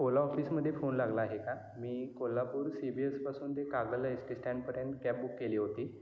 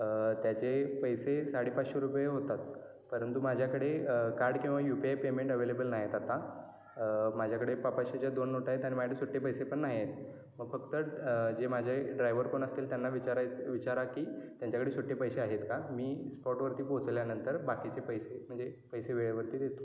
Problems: background sounds at intervals, continuous background conversations